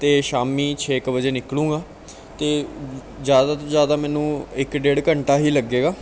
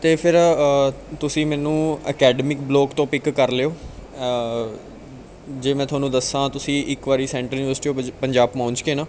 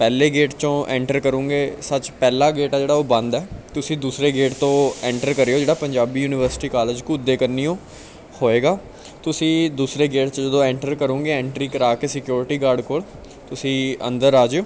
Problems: background conversations at intervals